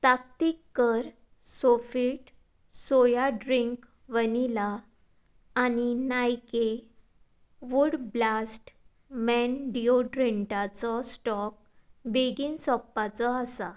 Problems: background sounds at intervals